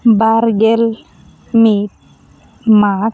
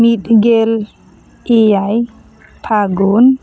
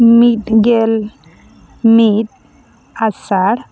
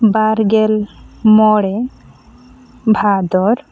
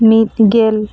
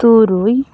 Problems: background sounds at intervals, continuous background conversations